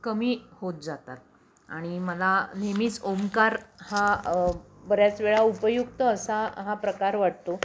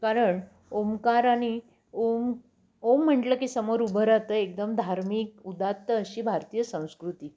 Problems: none marked